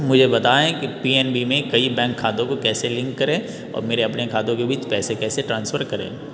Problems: background sounds at intervals